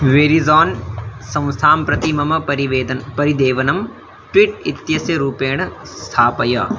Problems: constant background noise